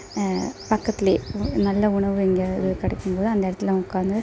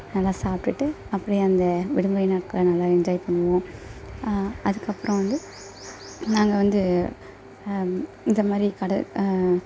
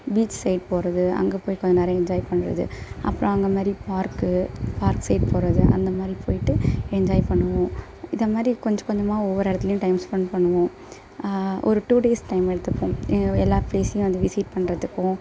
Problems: constant background noise